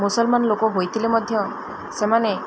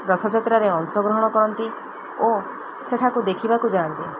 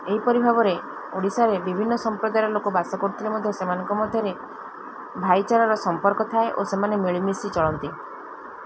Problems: constant background noise